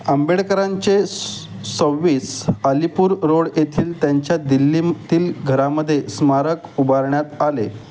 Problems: none marked